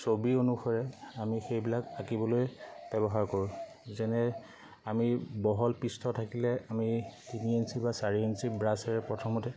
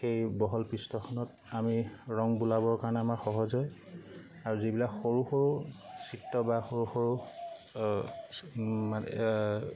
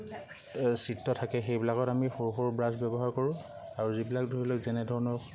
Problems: constant background noise